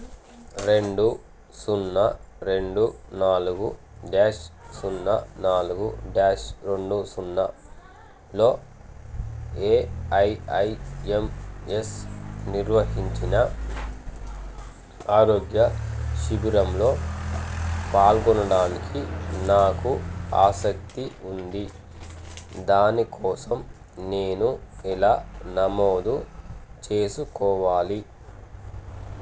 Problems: constant background noise